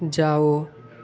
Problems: background sounds at intervals